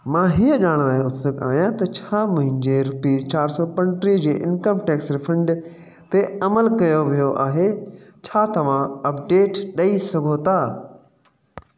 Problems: background sounds at intervals, echo